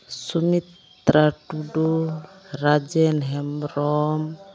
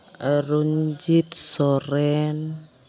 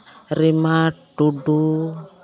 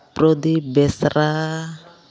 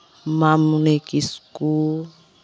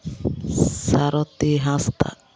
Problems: constant background noise